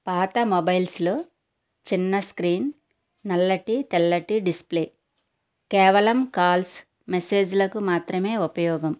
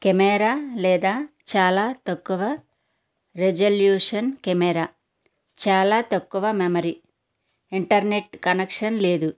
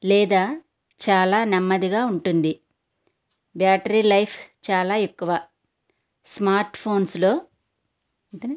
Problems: constant background noise